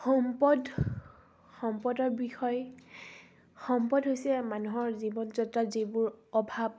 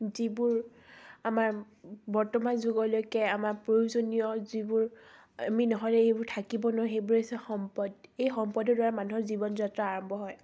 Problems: none marked